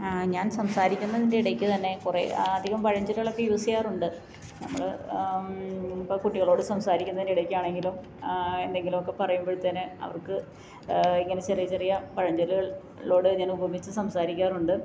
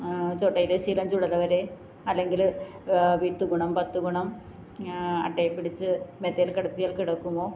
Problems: low volume